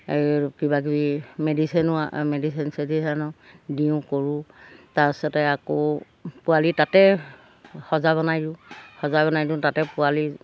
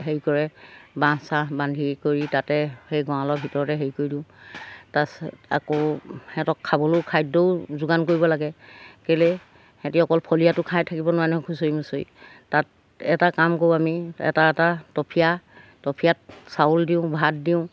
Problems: background sounds at intervals